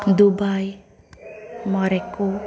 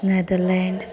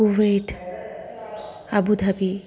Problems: background sounds at intervals, background conversations at intervals